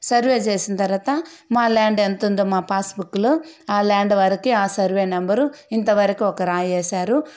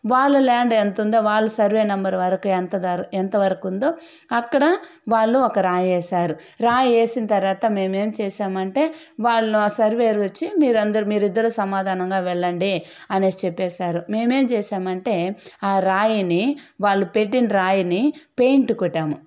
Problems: none marked